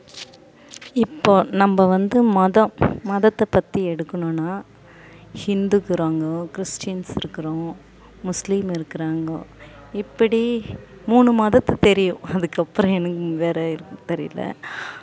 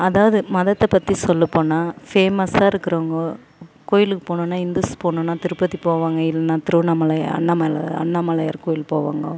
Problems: background sounds at intervals